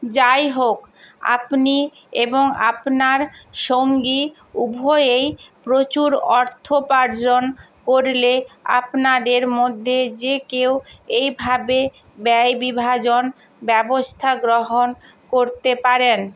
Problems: constant background noise